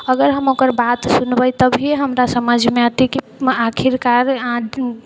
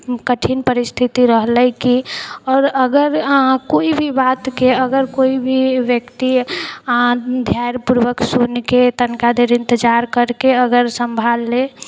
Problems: none marked